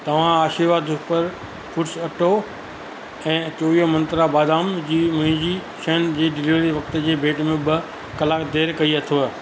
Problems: constant background noise